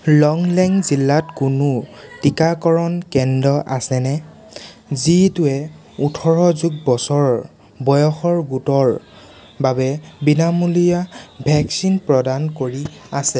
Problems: constant background noise